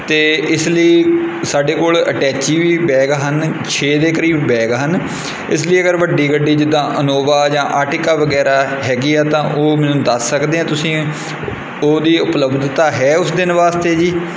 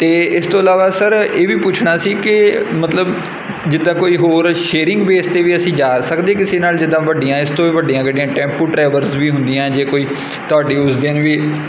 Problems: none marked